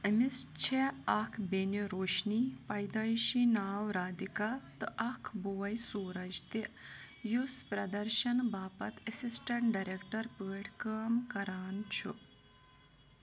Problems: constant background noise